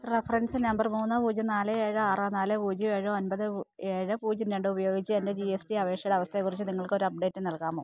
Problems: none marked